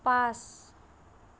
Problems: none marked